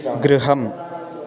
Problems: continuous background conversations